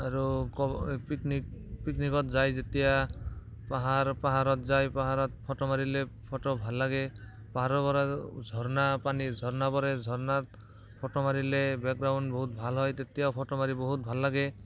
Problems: background sounds at intervals, background conversations at intervals